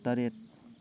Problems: none marked